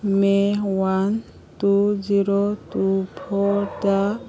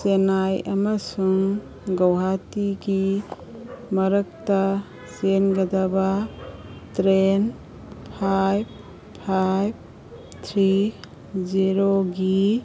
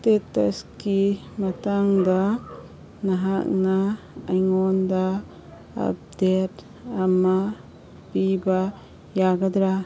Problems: background sounds at intervals